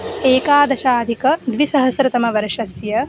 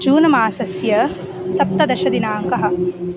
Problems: background sounds at intervals